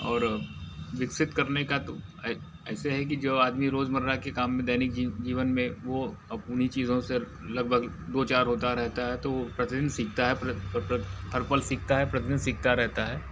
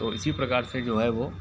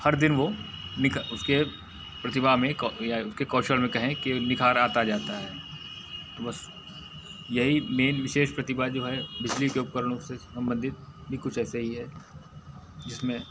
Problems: constant background noise